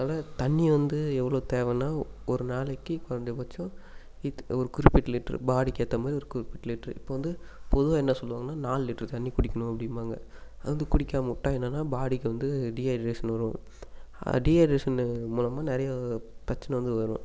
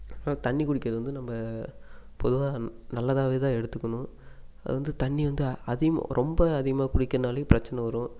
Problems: constant background noise